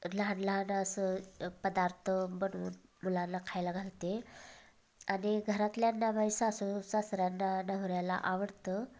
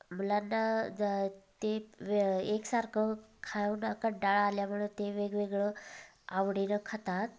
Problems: background sounds at intervals, background conversations at intervals